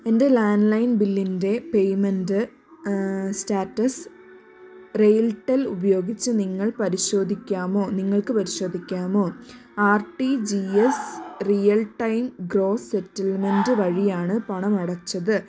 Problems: none marked